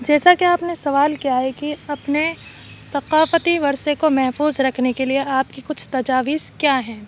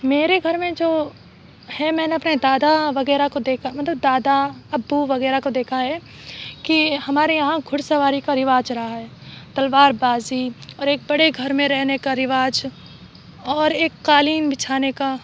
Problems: background sounds at intervals